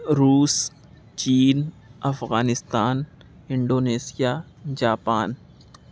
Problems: none marked